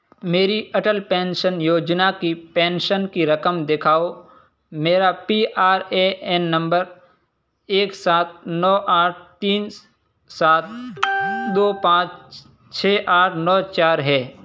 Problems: constant background noise